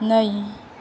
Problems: constant background noise